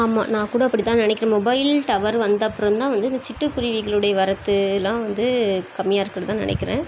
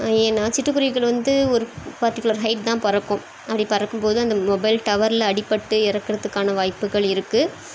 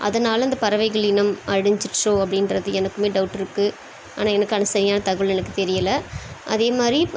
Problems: constant background noise